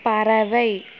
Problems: constant background noise